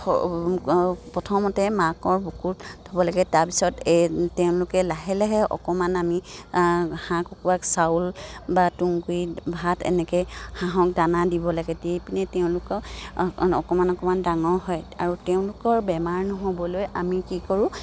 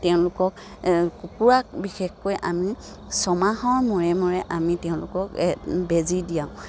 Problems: none marked